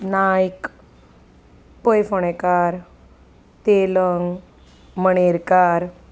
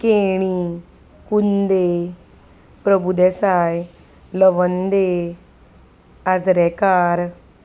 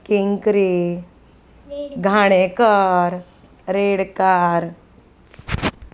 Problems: constant background noise, background conversations at intervals